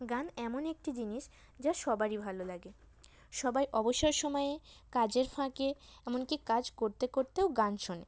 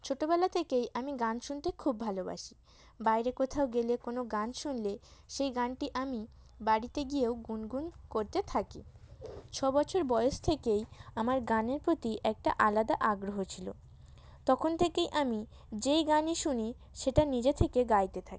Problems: none marked